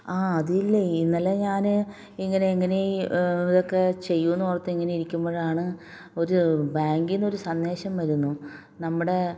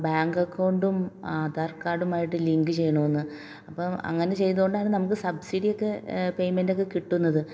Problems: low volume